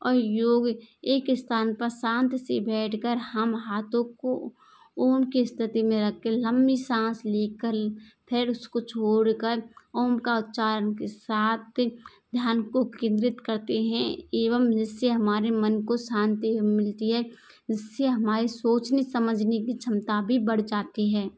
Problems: background sounds at intervals